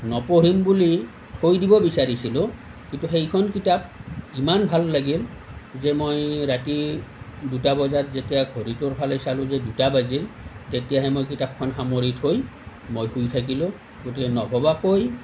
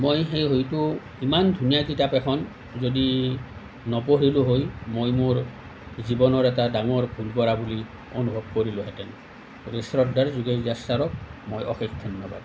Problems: none marked